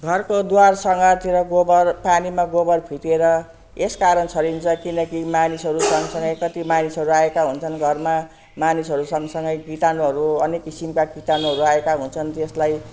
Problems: constant background noise